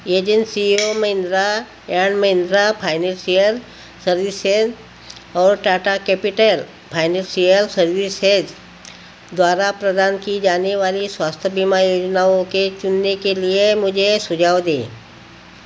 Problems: constant background noise